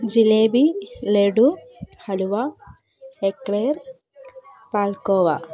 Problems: background conversations at intervals